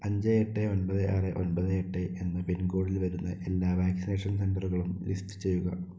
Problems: low volume